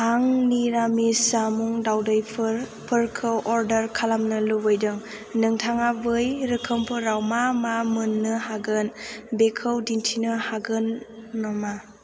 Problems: constant background noise